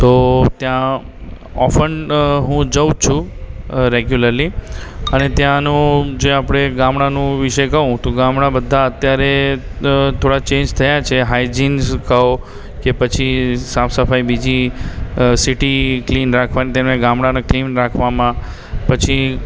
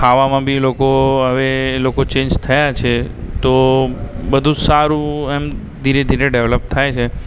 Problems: constant background noise, background conversations at intervals